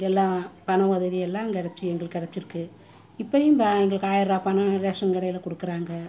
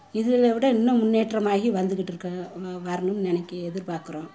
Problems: constant background noise, continuous background conversations